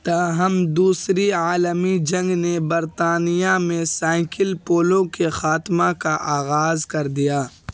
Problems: constant background noise